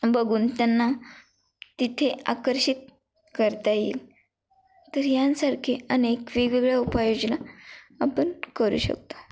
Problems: none marked